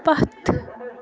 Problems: constant background noise